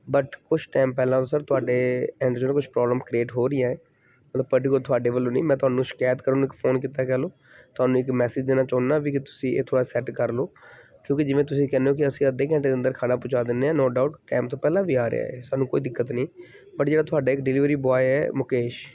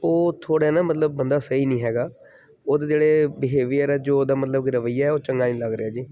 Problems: background sounds at intervals